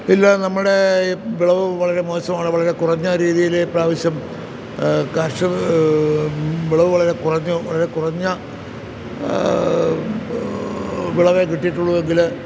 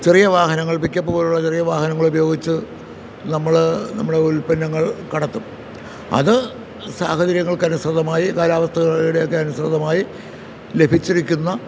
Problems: constant background noise